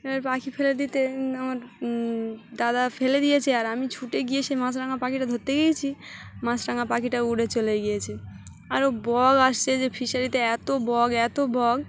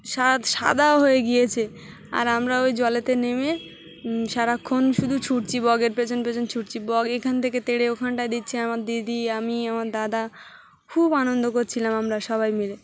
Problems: background sounds at intervals, background conversations at intervals